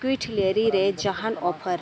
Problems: constant background noise, continuous background conversations